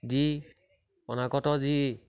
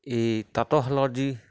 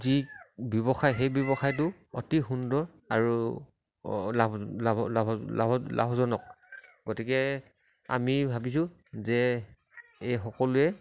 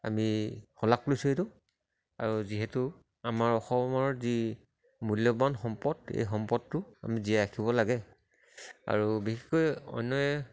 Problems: none marked